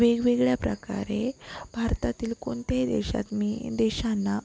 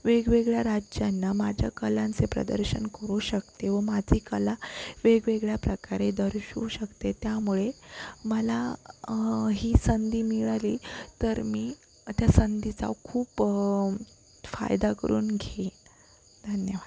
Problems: constant background noise